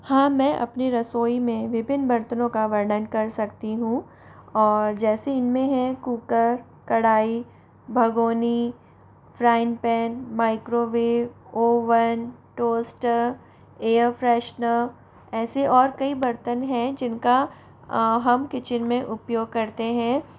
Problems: background sounds at intervals